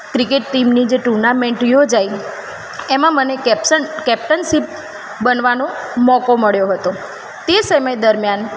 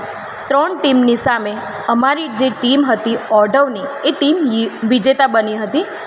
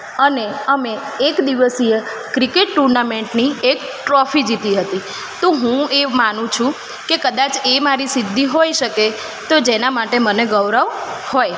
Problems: constant background noise